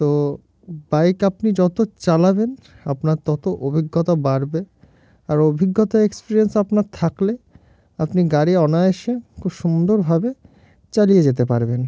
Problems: constant background noise